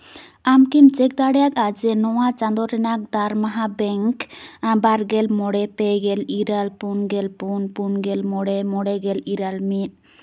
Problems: none marked